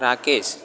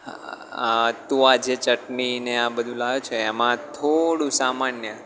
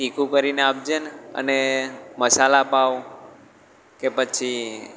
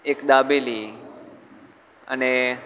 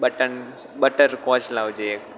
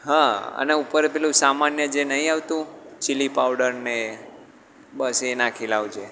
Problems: background sounds at intervals